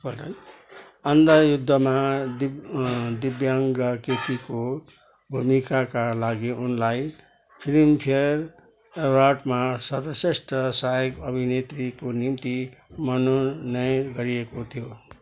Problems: none marked